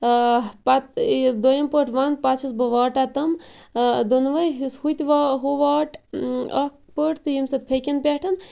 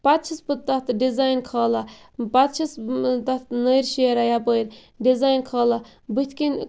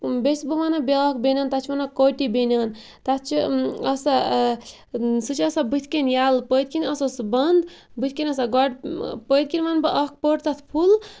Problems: constant background noise